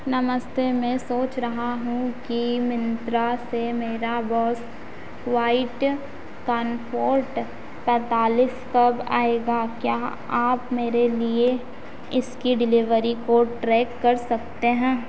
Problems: none marked